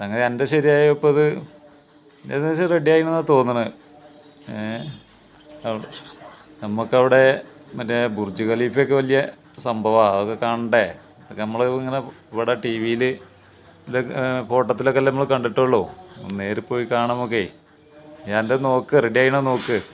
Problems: background conversations at intervals